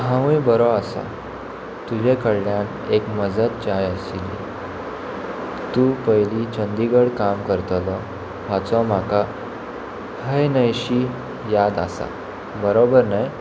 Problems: constant background noise